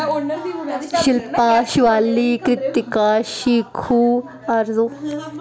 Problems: constant background noise